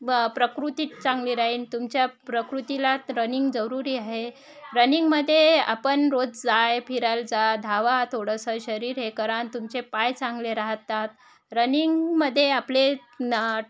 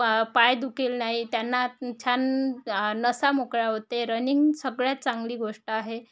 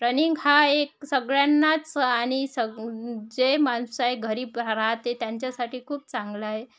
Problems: none marked